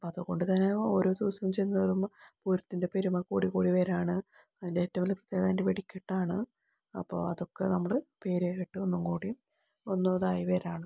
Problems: low volume